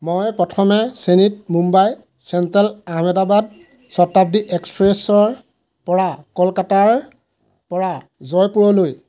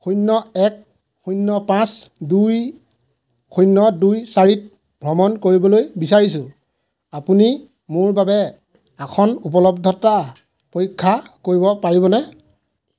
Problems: none marked